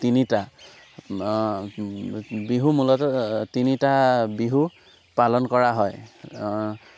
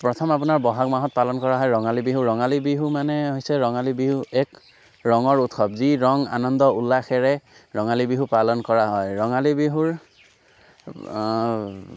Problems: constant background noise